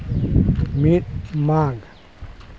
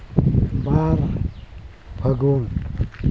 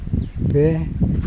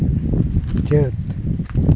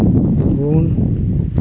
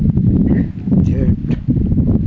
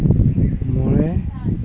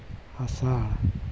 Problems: constant background noise